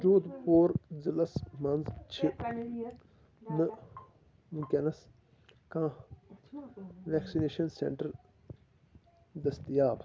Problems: constant background noise, low volume